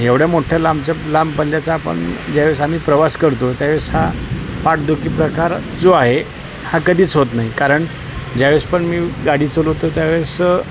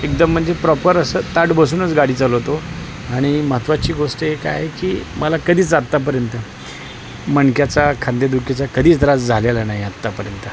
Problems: constant background noise